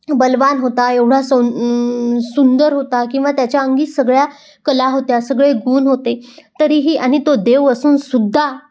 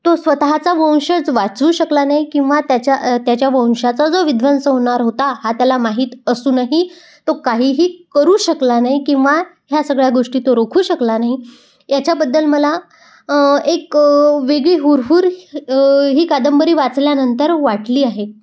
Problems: background sounds at intervals